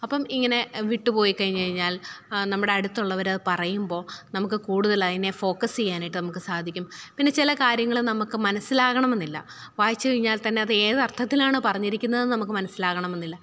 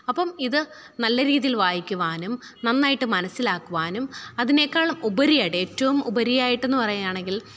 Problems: none marked